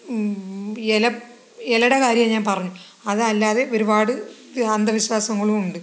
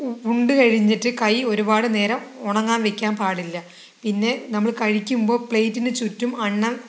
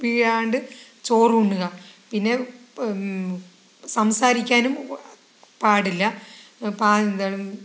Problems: background conversations at intervals